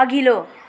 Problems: constant background noise